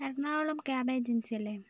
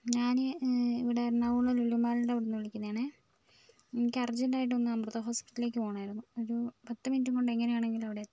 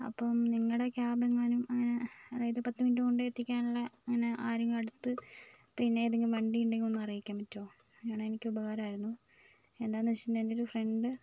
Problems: background sounds at intervals, low volume